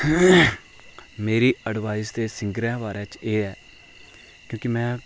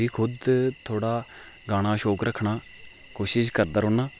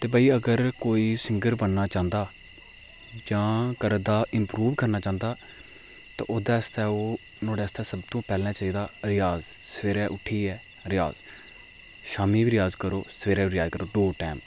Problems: low volume